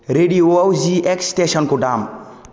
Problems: none marked